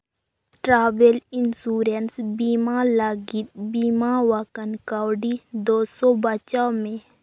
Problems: background sounds at intervals